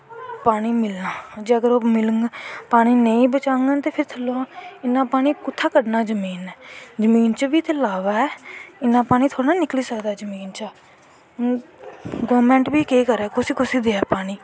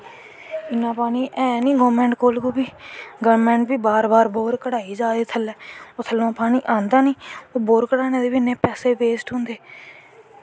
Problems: constant background noise